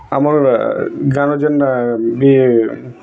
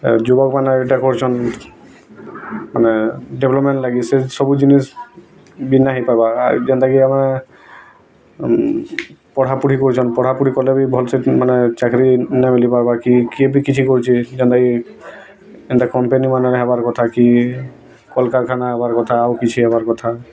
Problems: constant background noise, continuous background conversations